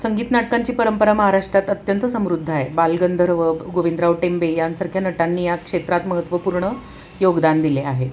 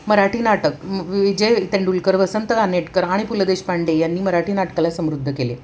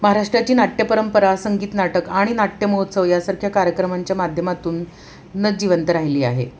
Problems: constant background noise